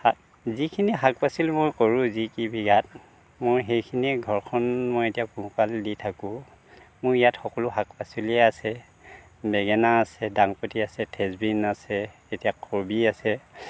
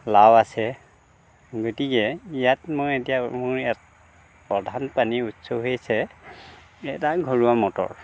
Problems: constant background noise